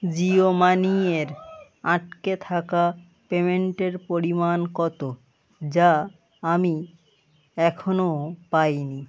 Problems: none marked